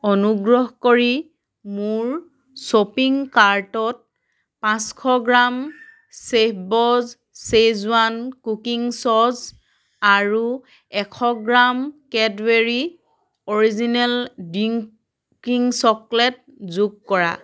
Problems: background sounds at intervals, background conversations at intervals